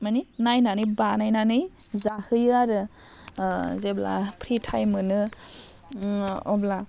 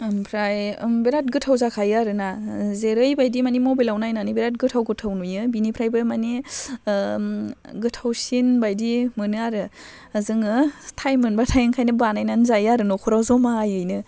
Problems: none marked